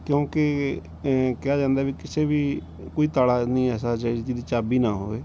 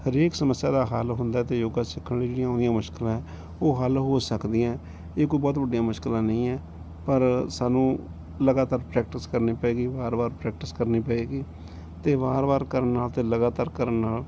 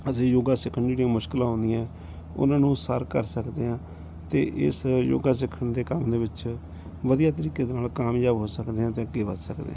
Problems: background sounds at intervals